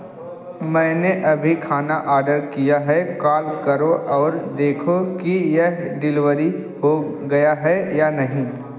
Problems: none marked